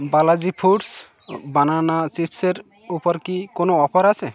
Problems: constant background noise